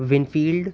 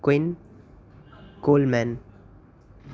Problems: constant background noise